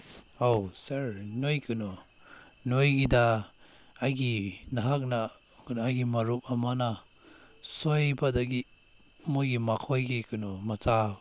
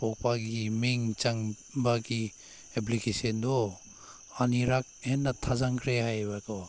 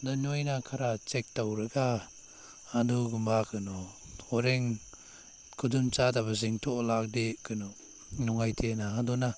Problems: background sounds at intervals